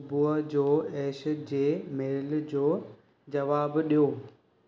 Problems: none marked